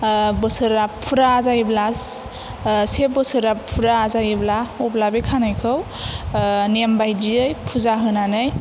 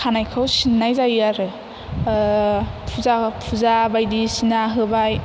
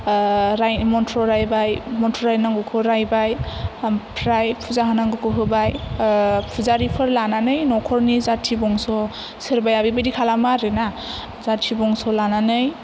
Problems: none marked